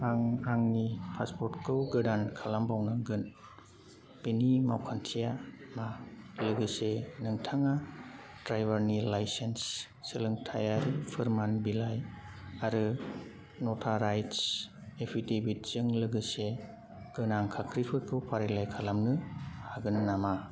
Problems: none marked